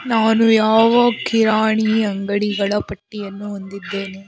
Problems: constant background noise